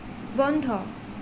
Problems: constant background noise